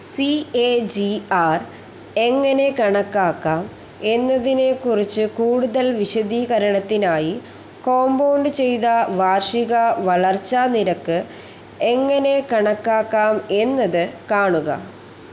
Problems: constant background noise